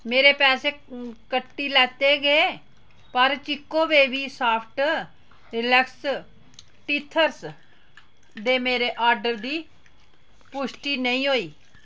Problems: background sounds at intervals